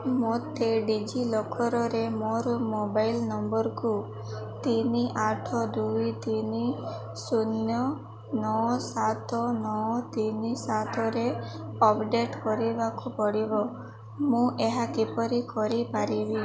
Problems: none marked